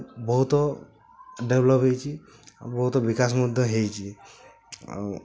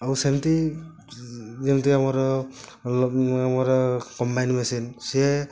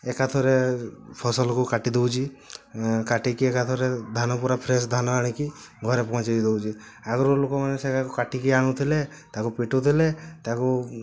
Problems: constant background noise